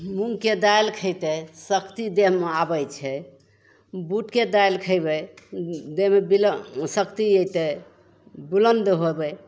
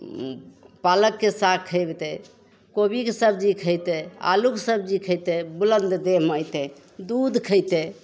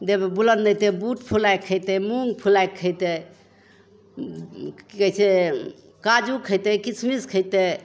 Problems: none marked